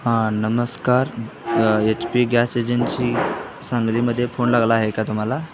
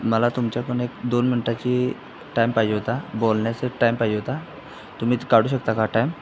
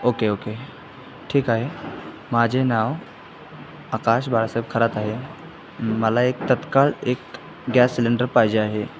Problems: constant background noise, background conversations at intervals